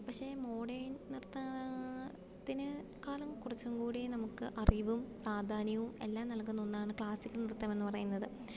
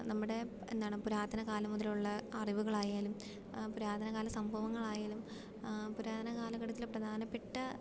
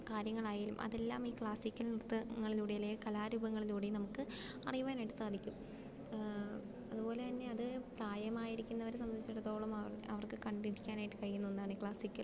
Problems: background sounds at intervals, low volume